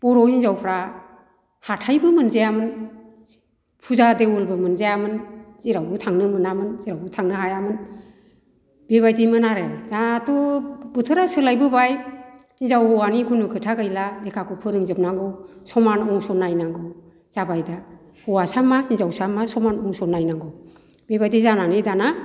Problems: none marked